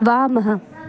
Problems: continuous background conversations